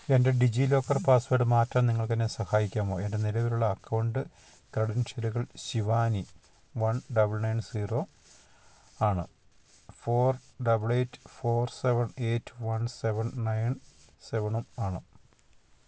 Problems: constant background noise